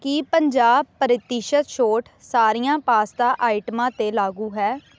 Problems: constant background noise